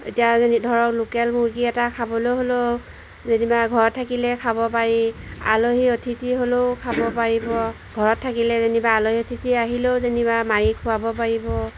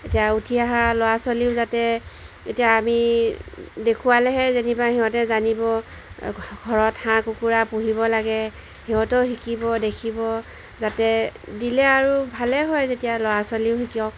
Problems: background sounds at intervals